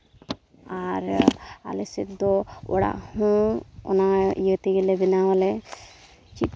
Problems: background sounds at intervals